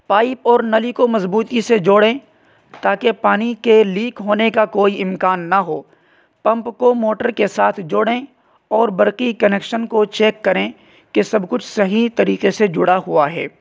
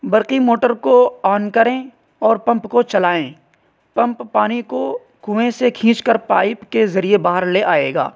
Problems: constant background noise